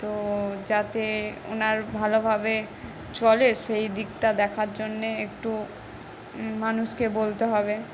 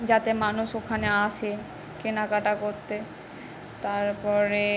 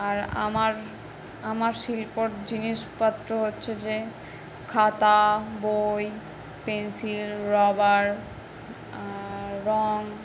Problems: constant background noise